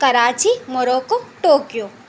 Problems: none marked